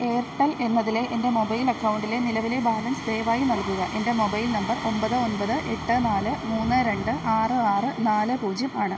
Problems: none marked